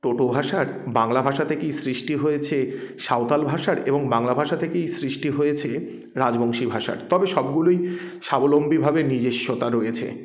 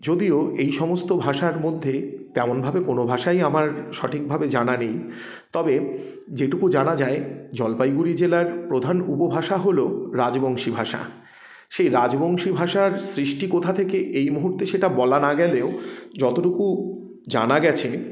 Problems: background sounds at intervals